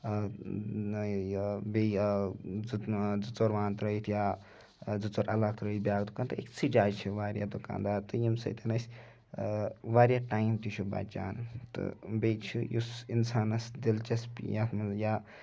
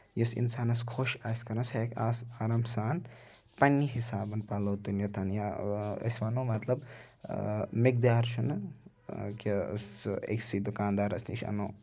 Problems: none marked